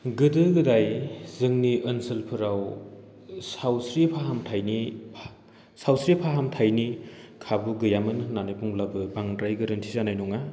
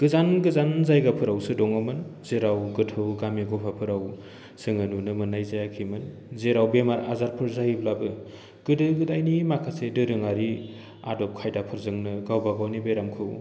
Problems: low volume